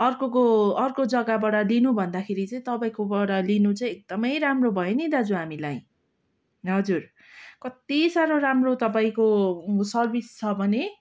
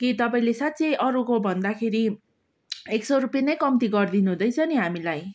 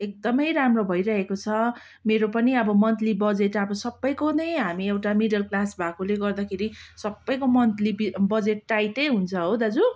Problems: background sounds at intervals